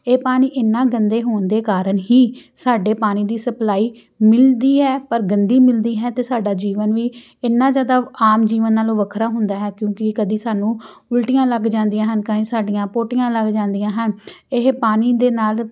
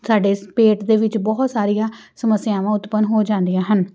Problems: background sounds at intervals